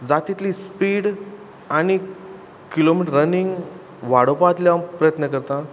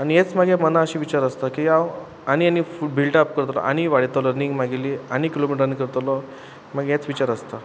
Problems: constant background noise